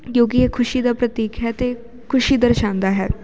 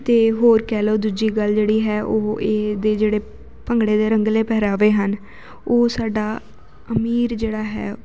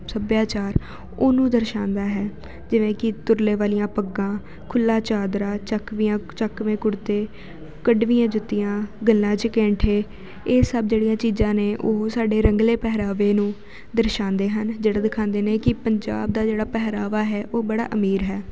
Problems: none marked